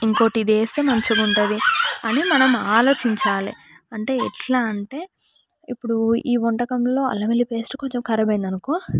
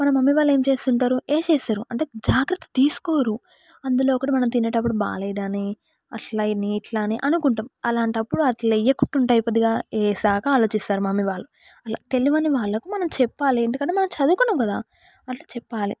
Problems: background sounds at intervals, background conversations at intervals